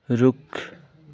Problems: none marked